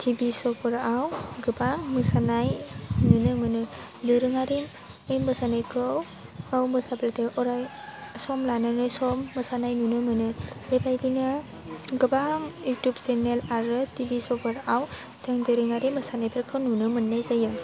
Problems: none marked